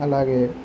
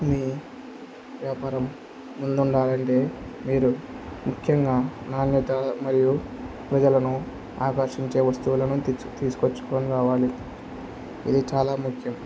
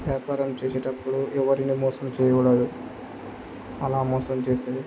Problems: none marked